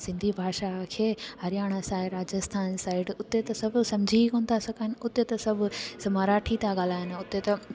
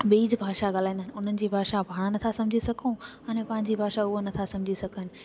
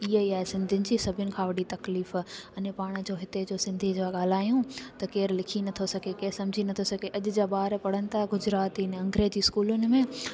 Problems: constant background noise